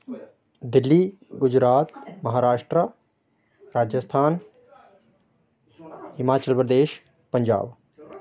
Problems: none marked